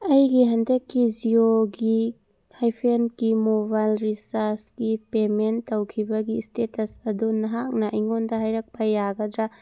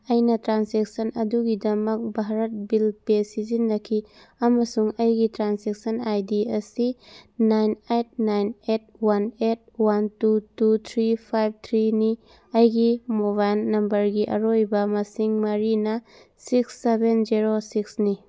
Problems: none marked